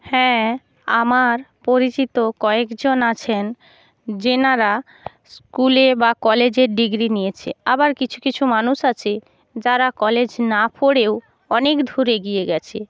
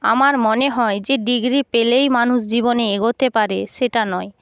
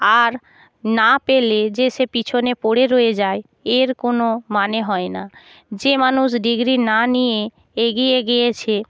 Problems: none marked